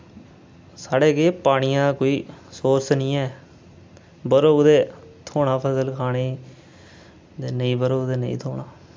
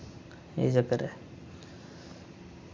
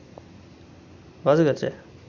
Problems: none marked